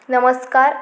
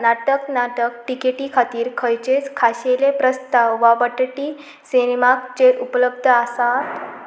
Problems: constant background noise